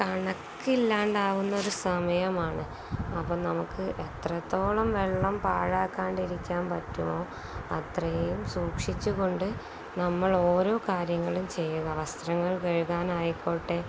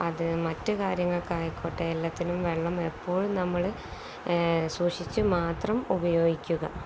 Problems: none marked